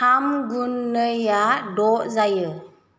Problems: none marked